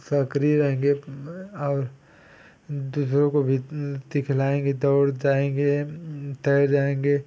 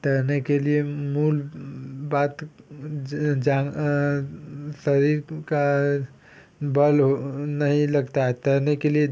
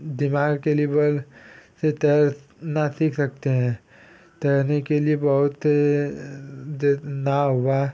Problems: background sounds at intervals